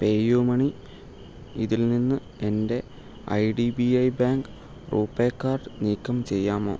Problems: low volume